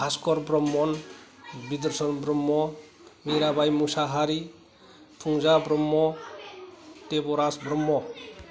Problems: none marked